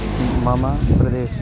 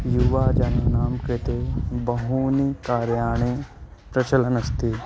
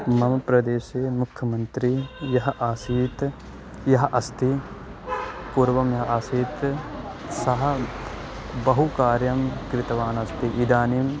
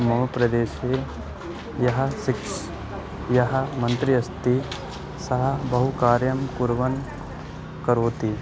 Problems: background sounds at intervals